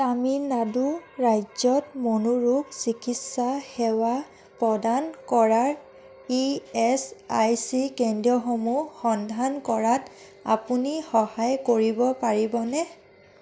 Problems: constant background noise